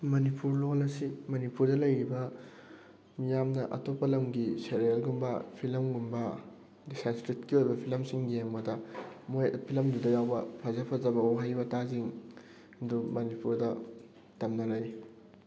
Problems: constant background noise